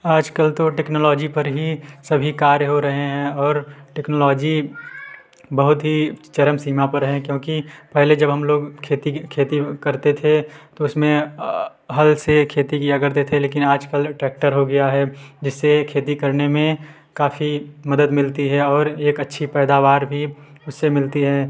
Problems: background sounds at intervals, background conversations at intervals